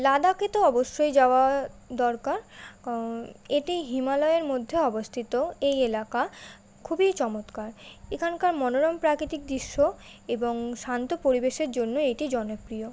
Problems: constant background noise